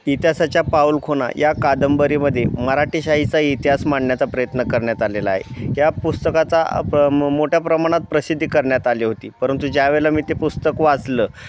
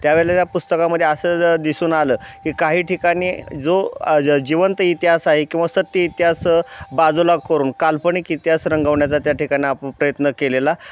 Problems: none marked